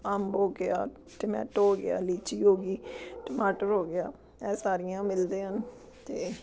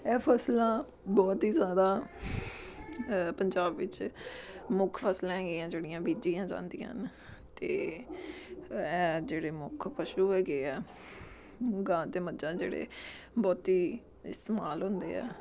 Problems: background sounds at intervals, background conversations at intervals